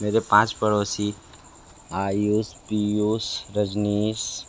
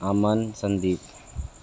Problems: constant background noise